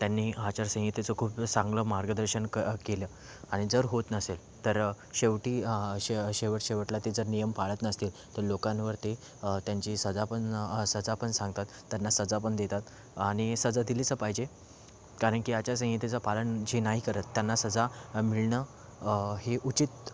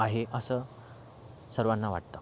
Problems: background sounds at intervals